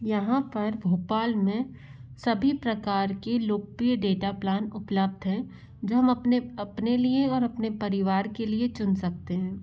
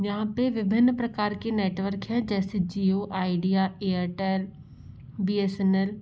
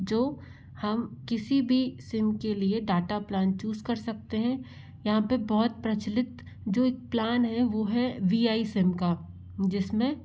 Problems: low volume